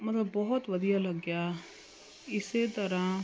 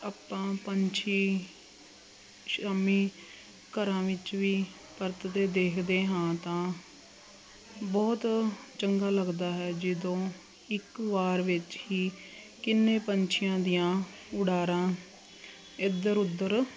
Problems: constant background noise